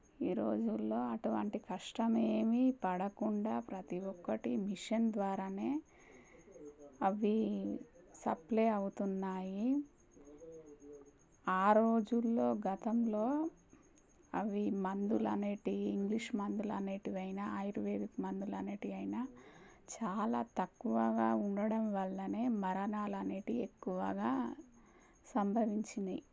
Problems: low volume